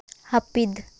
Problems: constant background noise